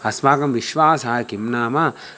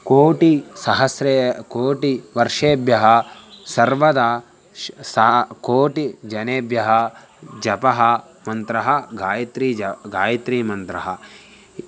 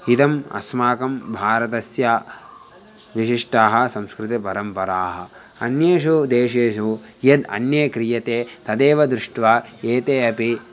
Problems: none marked